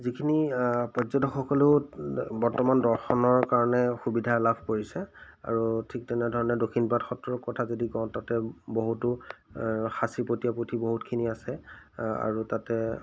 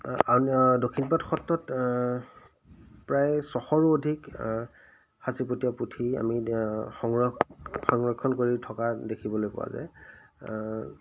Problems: none marked